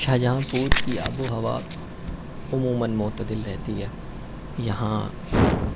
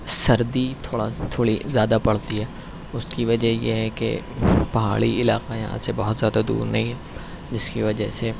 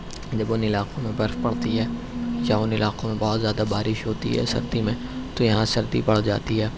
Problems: none marked